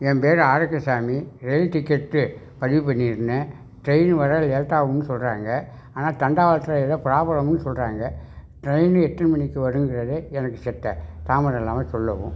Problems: background sounds at intervals